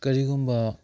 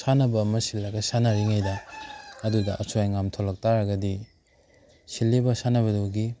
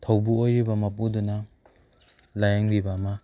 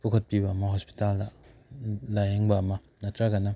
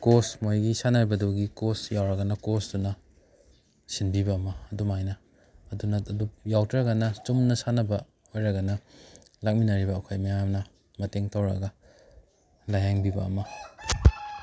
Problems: background sounds at intervals